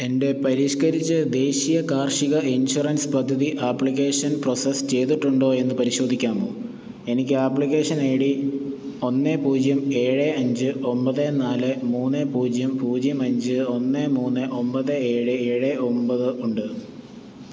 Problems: background sounds at intervals